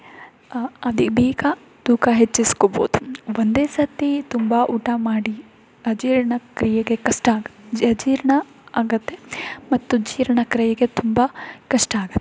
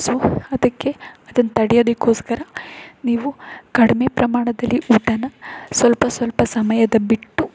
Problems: background sounds at intervals